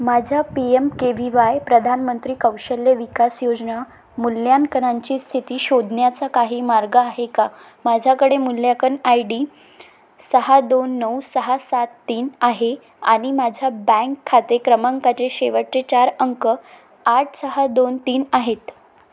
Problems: none marked